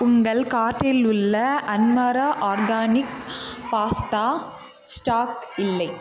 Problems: constant background noise, continuous background conversations